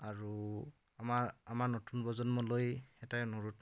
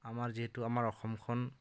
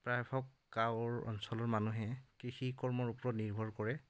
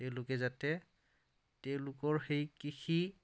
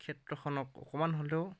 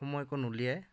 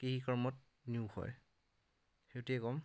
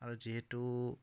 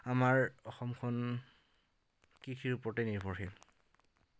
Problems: none marked